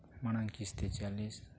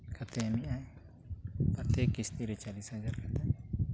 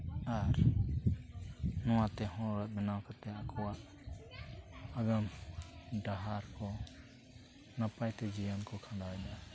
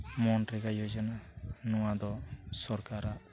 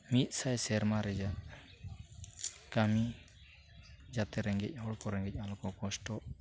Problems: background conversations at intervals